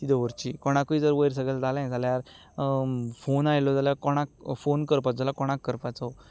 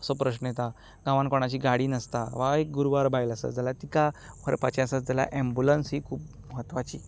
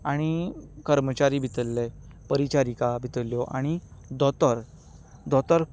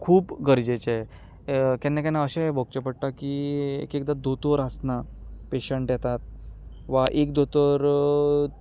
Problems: background sounds at intervals